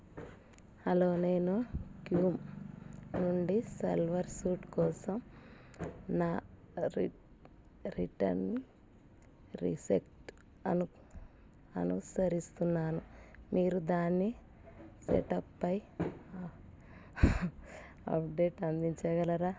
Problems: background sounds at intervals